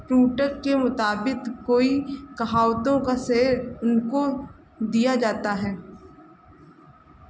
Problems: none marked